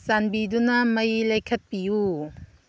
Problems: none marked